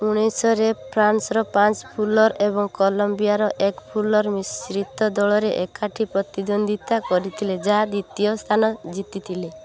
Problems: low volume